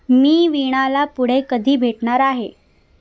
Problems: none marked